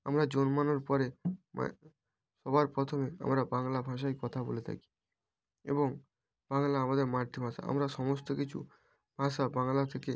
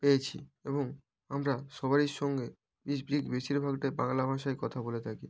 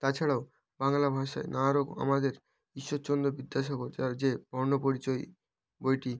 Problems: background sounds at intervals